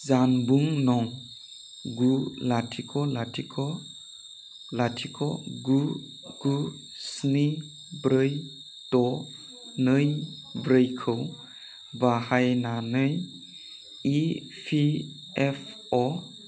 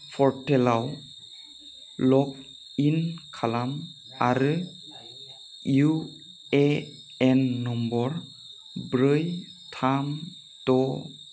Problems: none marked